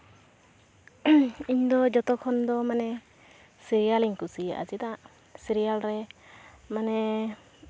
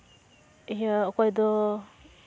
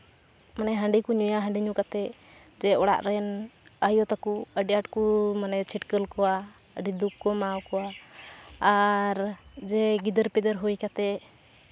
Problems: constant background noise, background conversations at intervals